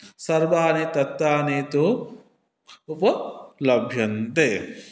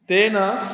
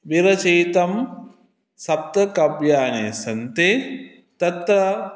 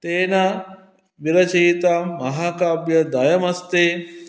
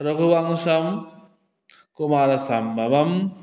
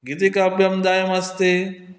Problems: none marked